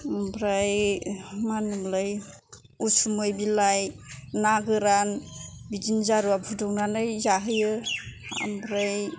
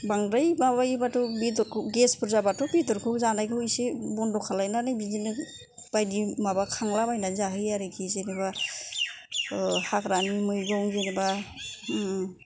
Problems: none marked